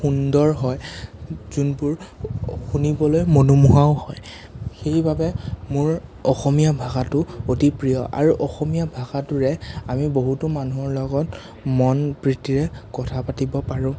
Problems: none marked